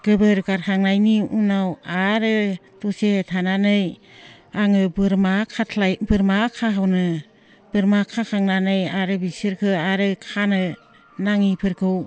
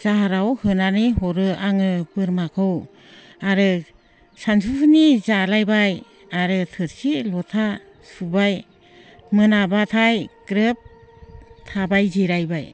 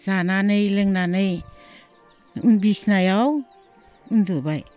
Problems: none marked